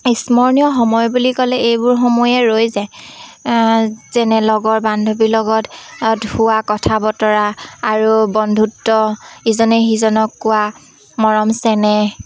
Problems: constant background noise, background conversations at intervals